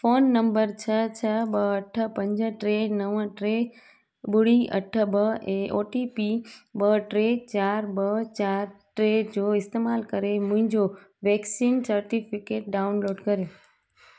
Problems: constant background noise